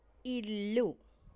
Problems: low volume